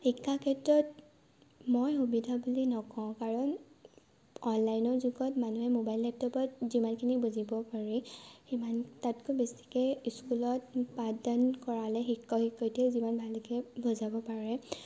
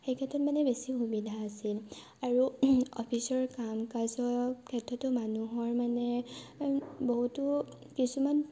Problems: constant background noise